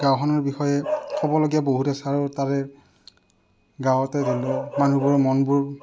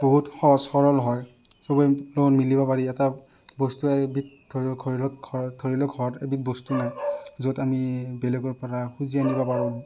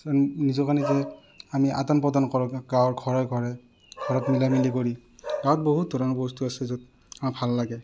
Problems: none marked